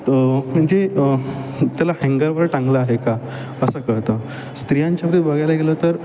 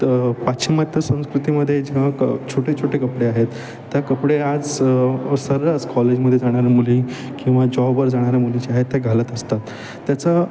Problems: background sounds at intervals